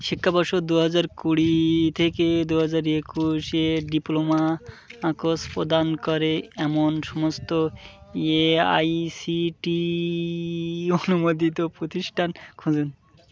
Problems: background conversations at intervals